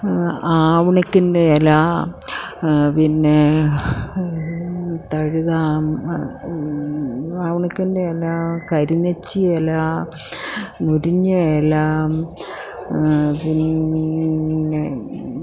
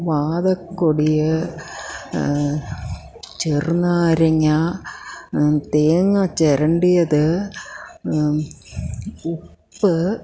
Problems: low volume